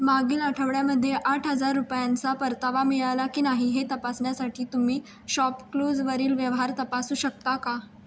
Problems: constant background noise